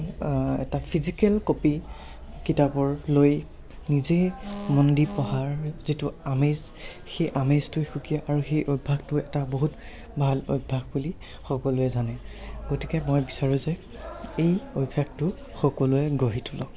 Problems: background conversations at intervals